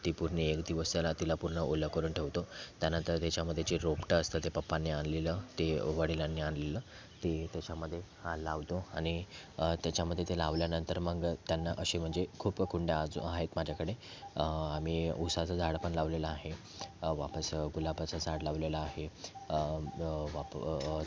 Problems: constant background noise, background conversations at intervals